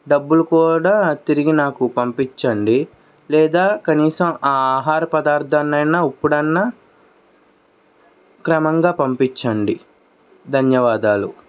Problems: background sounds at intervals